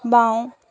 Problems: constant background noise